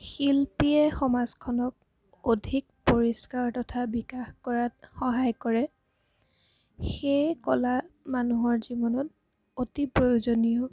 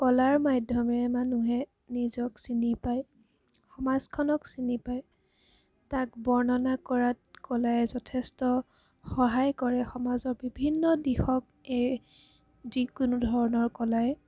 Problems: background sounds at intervals